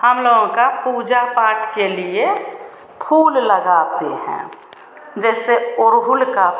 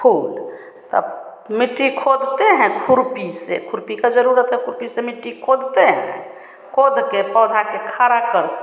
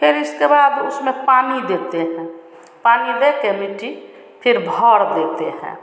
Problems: none marked